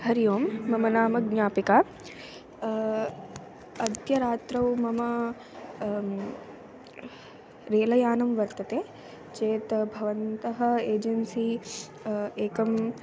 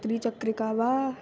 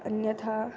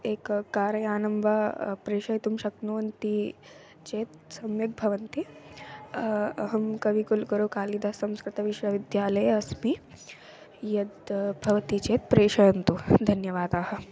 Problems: constant background noise